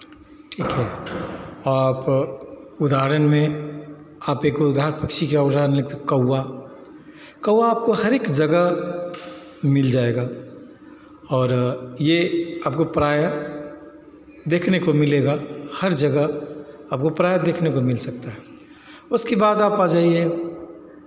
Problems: constant background noise, continuous background conversations, echo